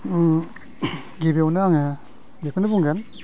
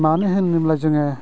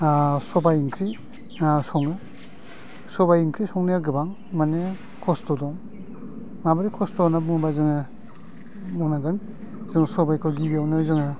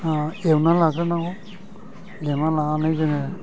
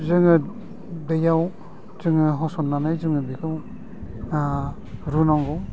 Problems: low volume